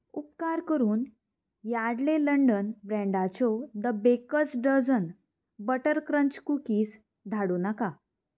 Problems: background sounds at intervals